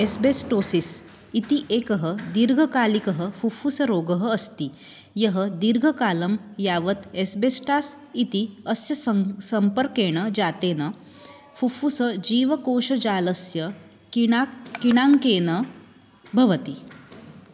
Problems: background sounds at intervals